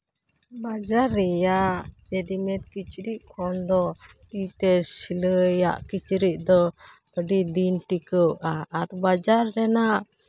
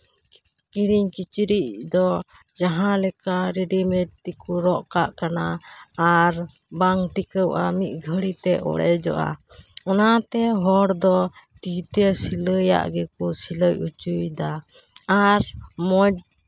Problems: constant background noise